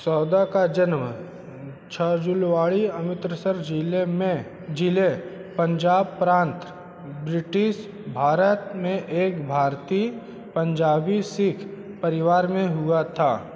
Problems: constant background noise